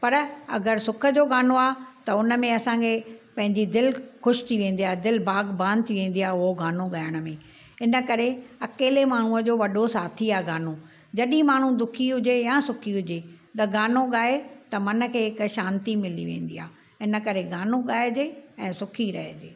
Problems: none marked